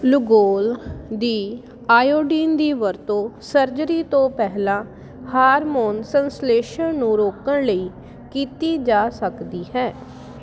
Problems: constant background noise